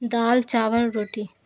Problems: constant background noise